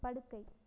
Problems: low volume